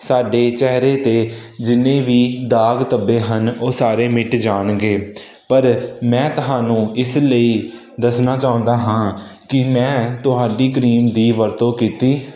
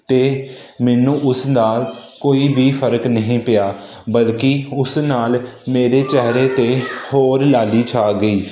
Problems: none marked